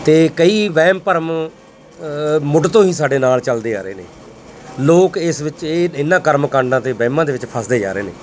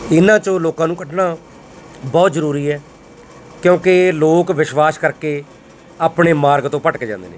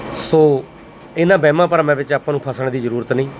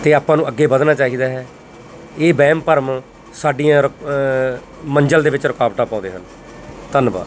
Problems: none marked